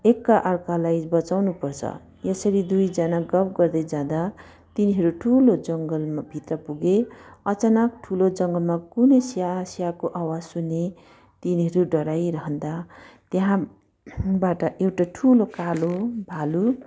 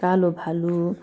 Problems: none marked